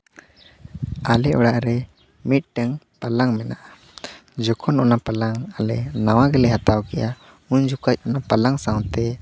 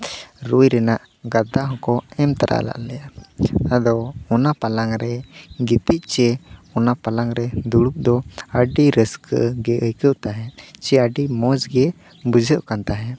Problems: none marked